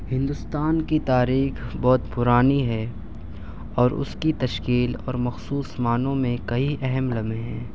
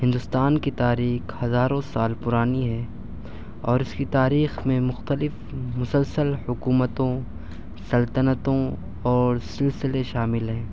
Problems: none marked